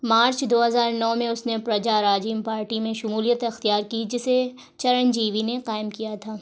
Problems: none marked